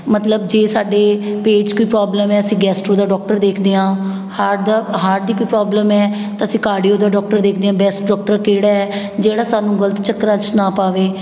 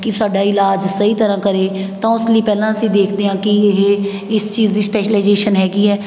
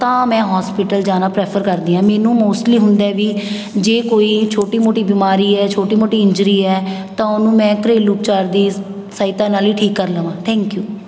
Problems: background sounds at intervals